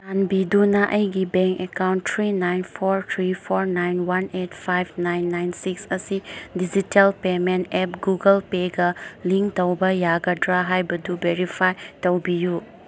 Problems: background sounds at intervals